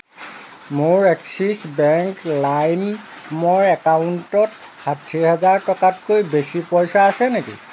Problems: constant background noise